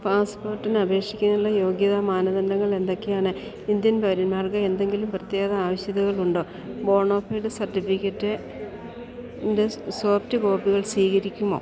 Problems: constant background noise